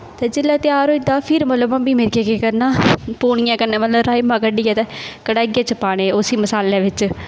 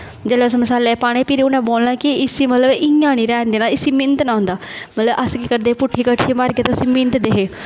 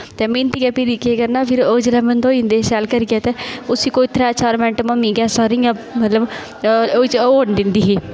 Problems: constant background noise